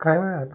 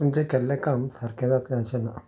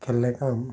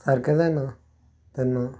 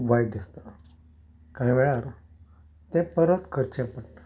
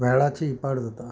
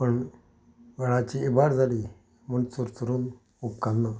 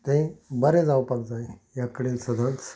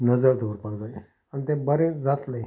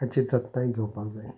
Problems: background sounds at intervals, low volume